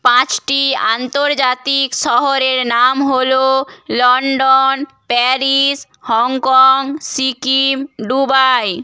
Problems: background sounds at intervals